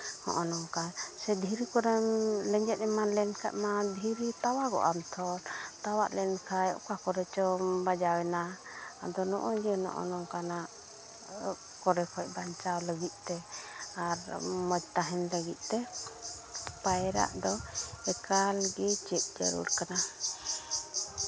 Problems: constant background noise, background conversations at intervals